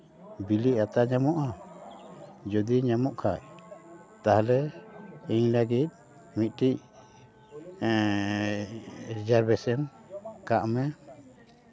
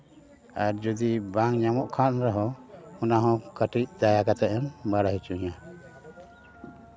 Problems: background conversations at intervals